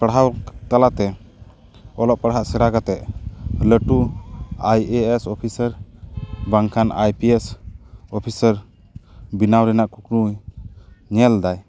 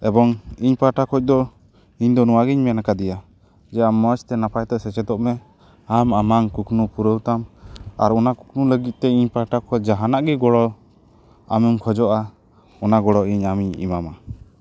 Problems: background sounds at intervals